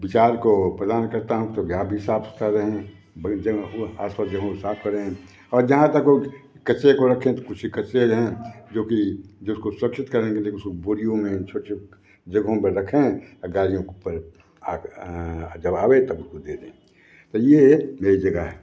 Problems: constant background noise